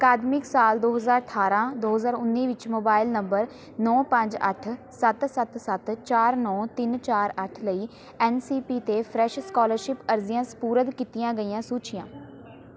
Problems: background sounds at intervals, continuous background conversations